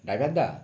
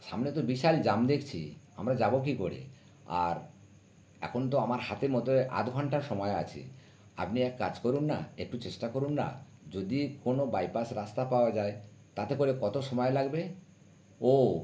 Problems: background sounds at intervals